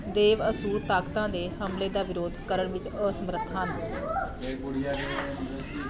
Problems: continuous background conversations